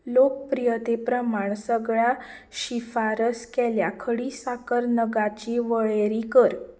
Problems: none marked